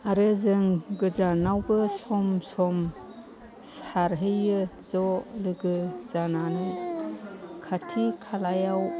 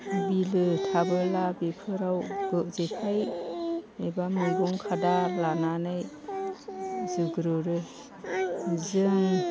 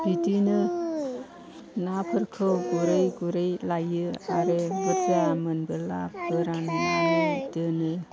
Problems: constant background noise